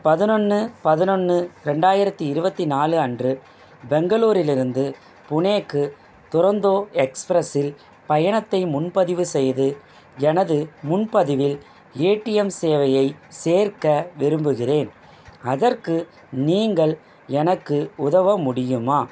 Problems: constant background noise